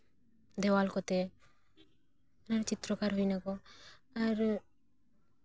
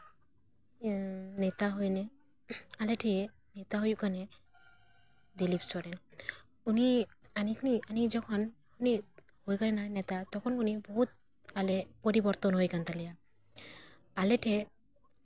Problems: background sounds at intervals